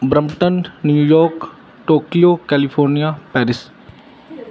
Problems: none marked